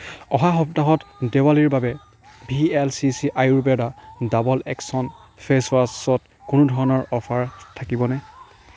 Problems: background sounds at intervals